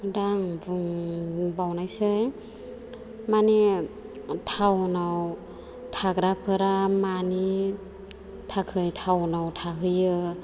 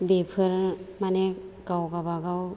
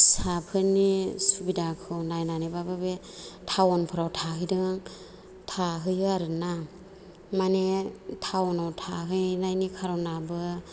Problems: low volume